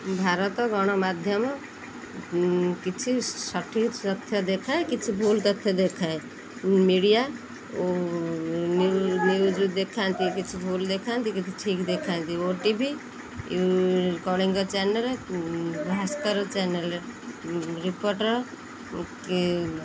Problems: constant background noise